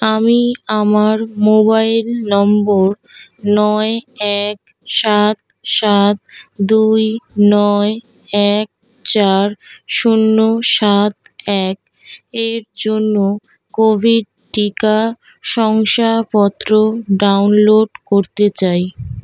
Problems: constant background noise